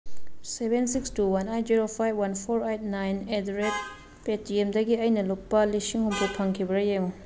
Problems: background sounds at intervals